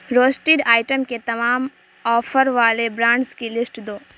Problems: constant background noise